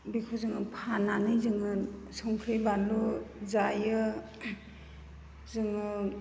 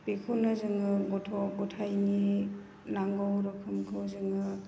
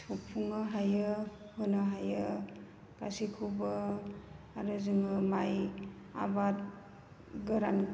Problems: constant background noise